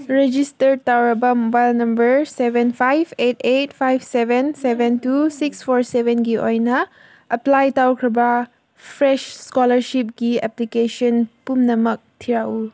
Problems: background conversations at intervals